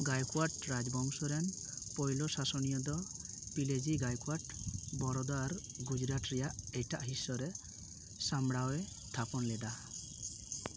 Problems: constant background noise, background conversations at intervals